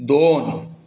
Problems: none marked